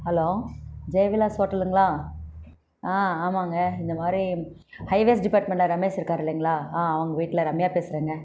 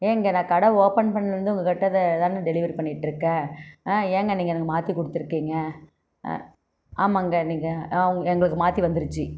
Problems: constant background noise